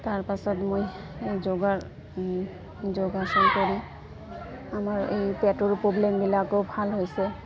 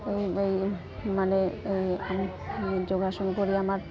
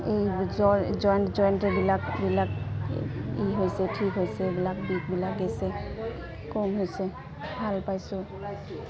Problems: constant background noise, continuous background conversations